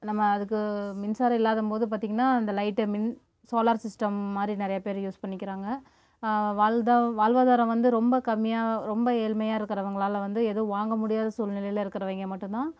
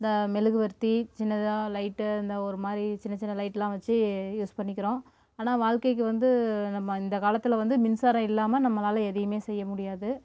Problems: background sounds at intervals